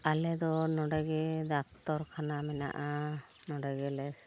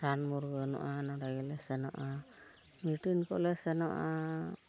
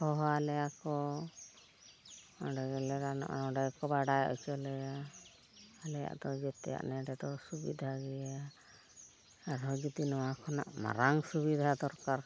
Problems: constant background noise, background conversations at intervals